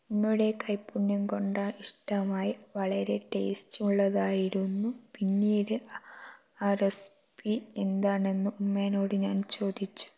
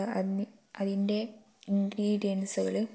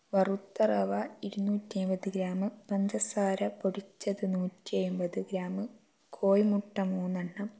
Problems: low volume